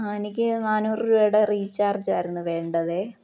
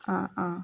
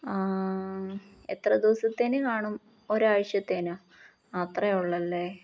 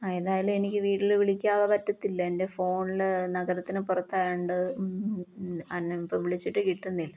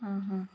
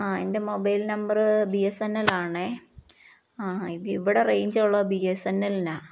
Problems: none marked